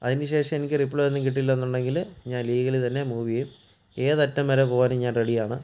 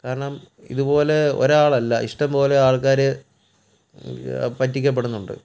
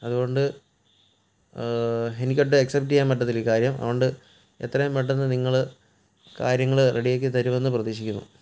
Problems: none marked